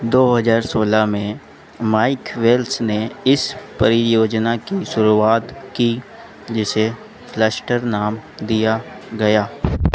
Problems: none marked